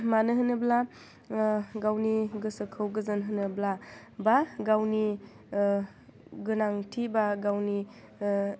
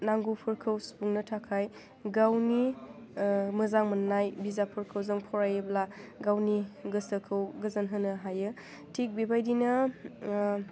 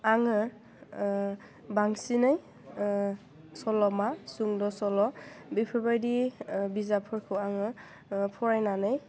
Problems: constant background noise